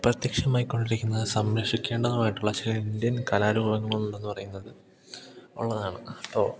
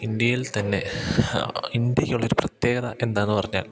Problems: none marked